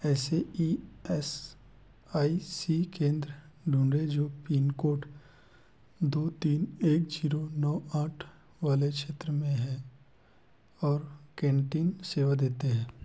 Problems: background sounds at intervals